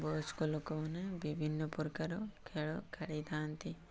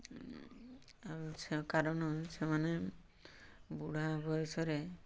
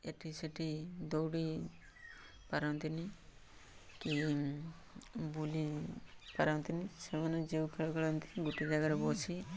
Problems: background sounds at intervals